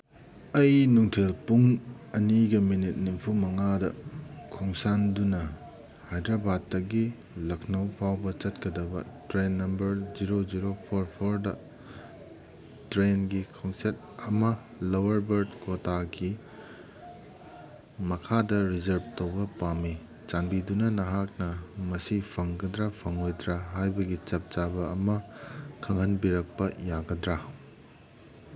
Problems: background sounds at intervals